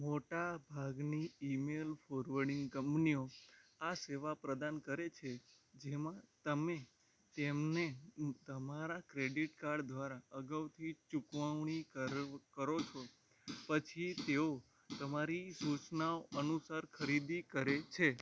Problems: background sounds at intervals